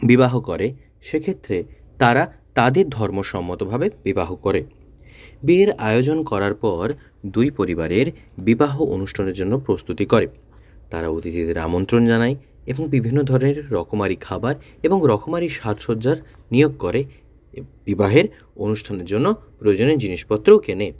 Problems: none marked